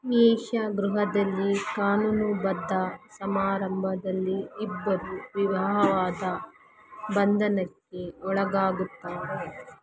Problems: constant background noise